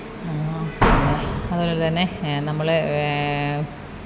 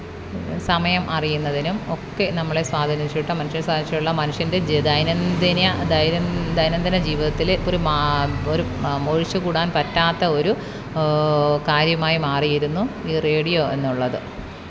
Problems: background sounds at intervals